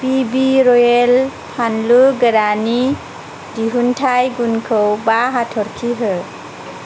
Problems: none marked